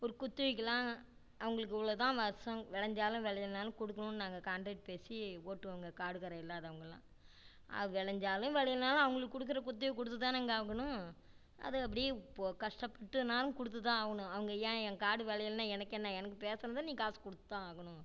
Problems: low volume